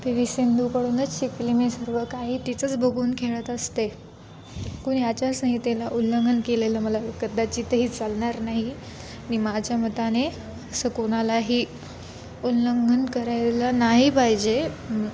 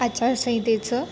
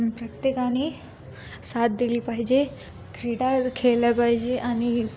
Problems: constant background noise